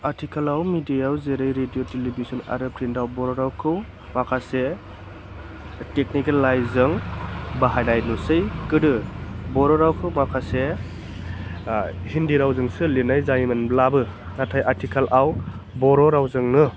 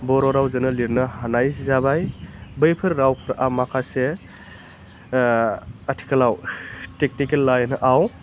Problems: none marked